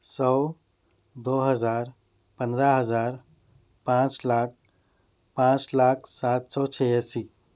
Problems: none marked